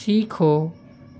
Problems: constant background noise